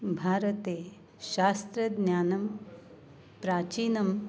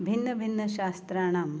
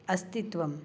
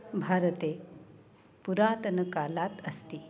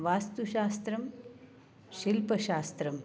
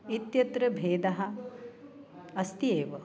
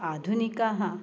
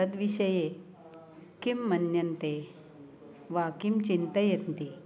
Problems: none marked